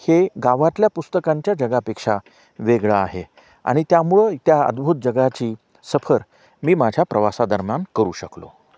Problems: background sounds at intervals